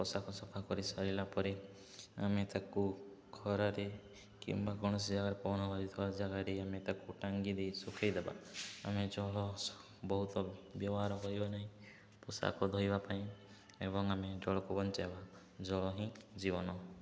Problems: low volume